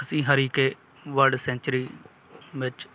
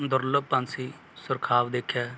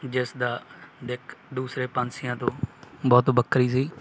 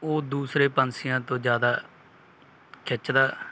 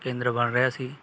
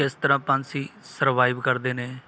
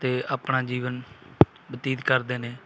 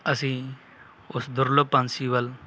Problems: background sounds at intervals